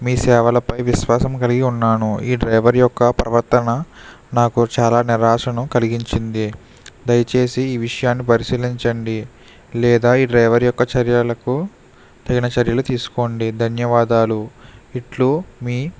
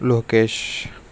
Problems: constant background noise